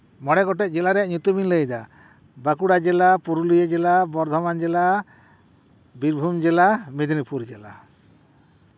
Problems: none marked